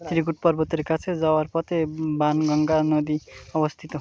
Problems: constant background noise